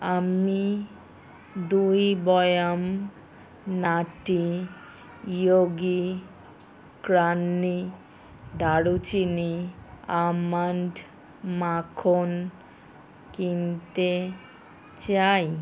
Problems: constant background noise